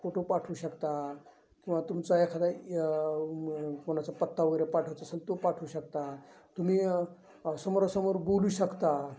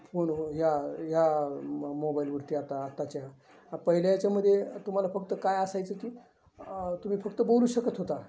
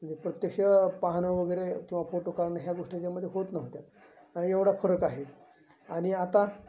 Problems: constant background noise, continuous background conversations, low volume